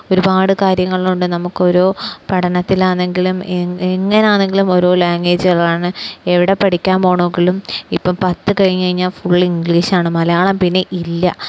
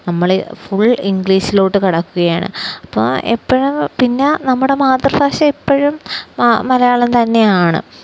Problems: none marked